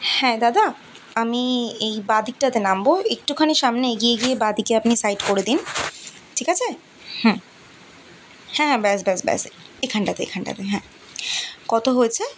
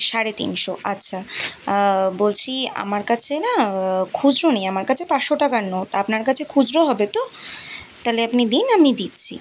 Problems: continuous background conversations